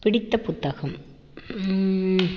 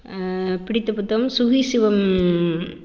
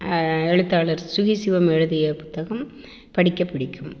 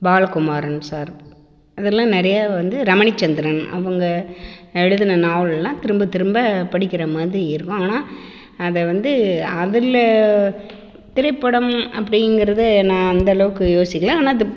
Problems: constant background noise, echo